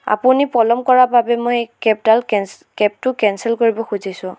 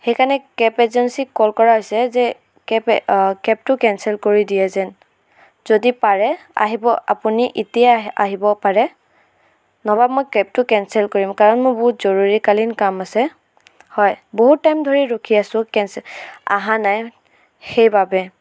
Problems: background sounds at intervals